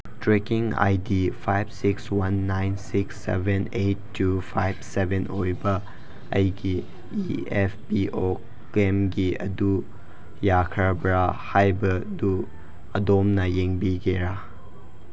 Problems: constant background noise